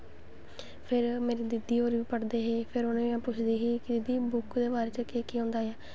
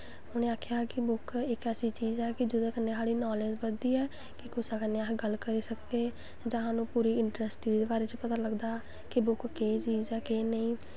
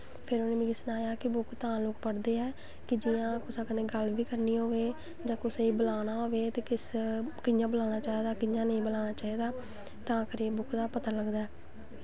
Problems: none marked